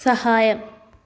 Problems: background sounds at intervals